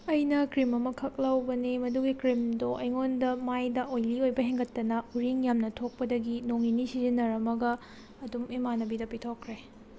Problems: background sounds at intervals